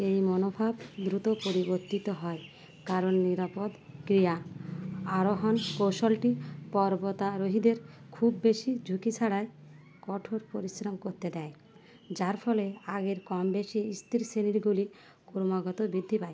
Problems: none marked